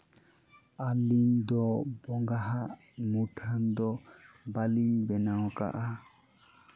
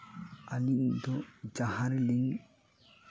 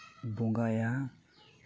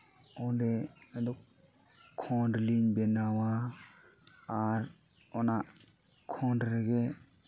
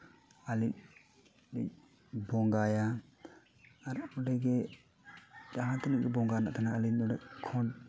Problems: constant background noise